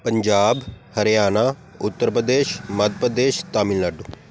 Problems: background sounds at intervals